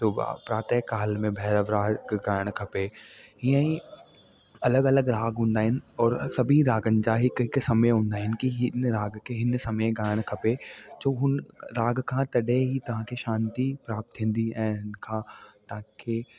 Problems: constant background noise